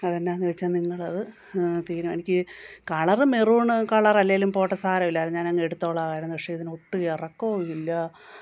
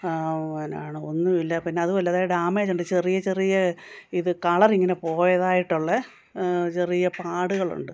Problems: background sounds at intervals